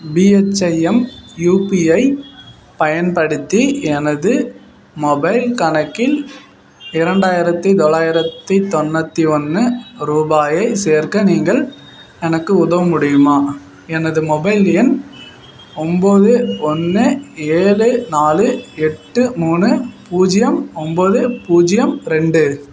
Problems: none marked